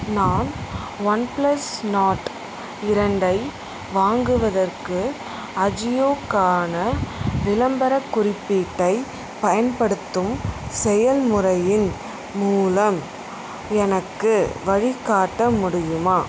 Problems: constant background noise